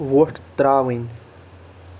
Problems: constant background noise